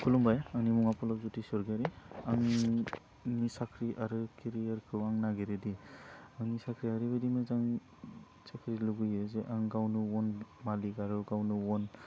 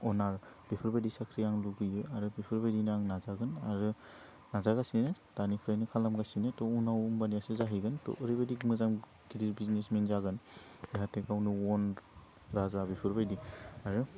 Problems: constant background noise